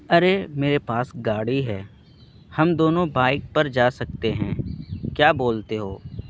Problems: constant background noise